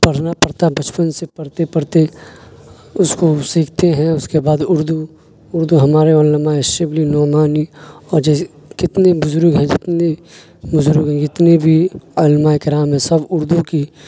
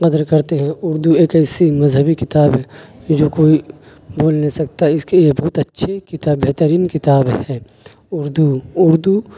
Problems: constant background noise